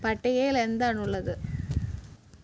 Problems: constant background noise